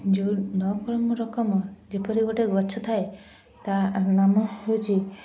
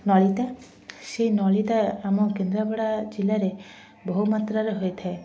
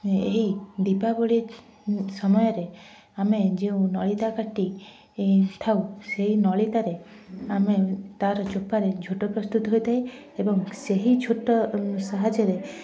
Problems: constant background noise, continuous background conversations, low volume